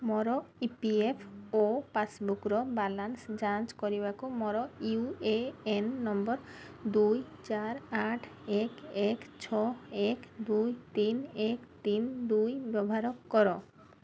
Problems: background sounds at intervals